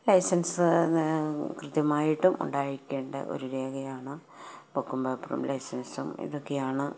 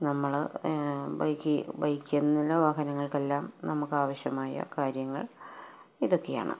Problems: none marked